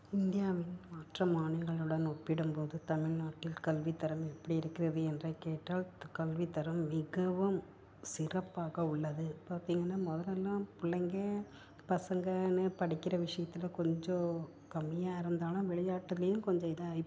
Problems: background sounds at intervals, low volume